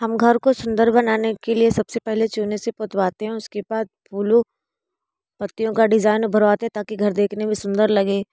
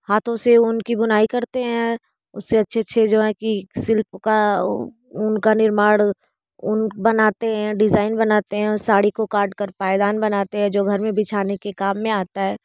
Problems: constant background noise